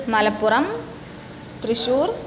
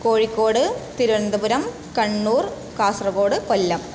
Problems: none marked